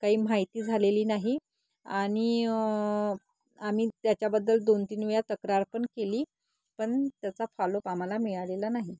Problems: background sounds at intervals